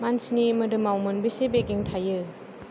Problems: low volume